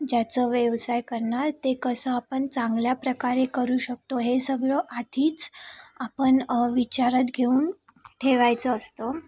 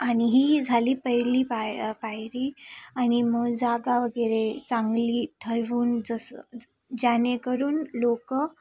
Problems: constant background noise, background conversations at intervals